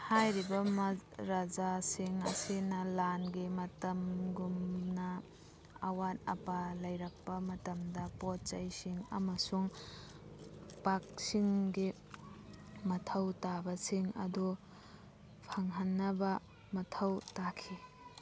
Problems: background conversations at intervals